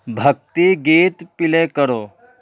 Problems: none marked